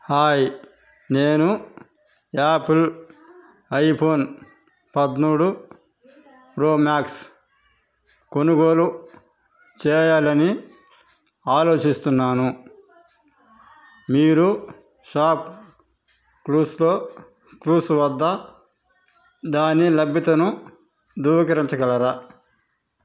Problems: constant background noise